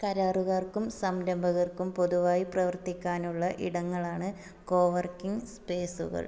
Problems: none marked